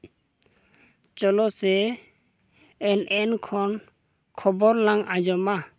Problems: background sounds at intervals